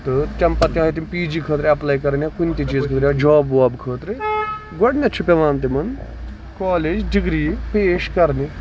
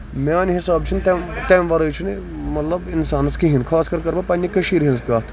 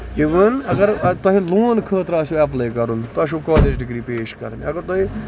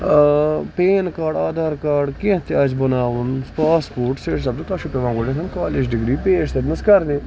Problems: constant background noise, background conversations at intervals